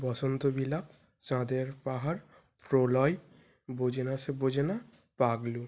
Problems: background sounds at intervals